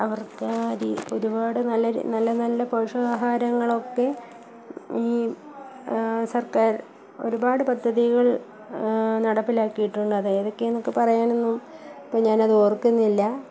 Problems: background sounds at intervals, low volume